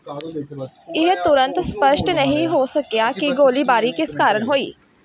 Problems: background conversations at intervals